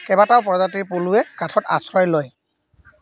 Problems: background sounds at intervals